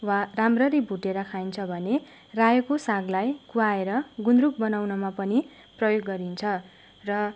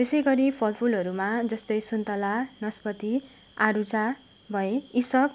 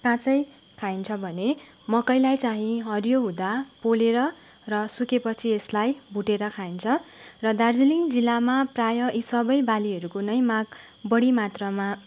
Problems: none marked